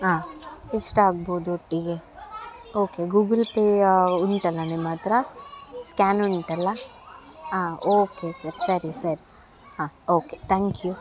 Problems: background sounds at intervals